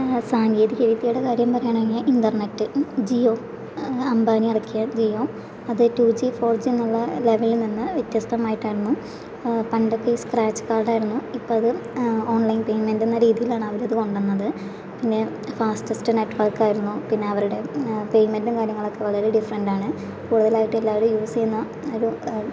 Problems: constant background noise